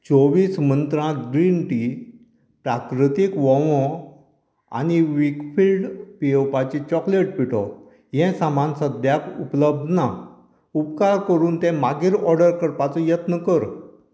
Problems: constant background noise